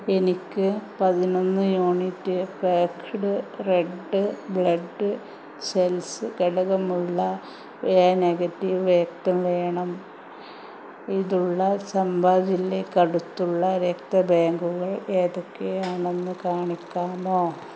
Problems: constant background noise